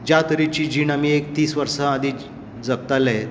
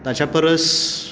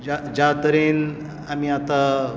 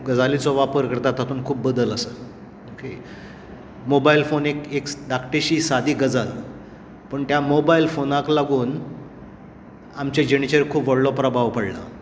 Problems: constant background noise